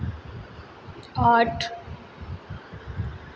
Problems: constant background noise, echo